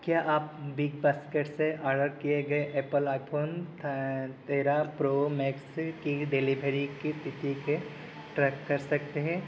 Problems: constant background noise